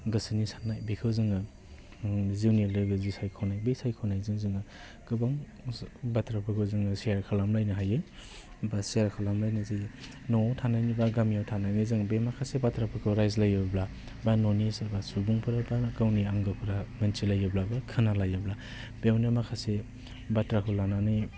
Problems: constant background noise